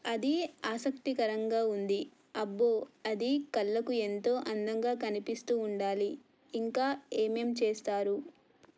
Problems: none marked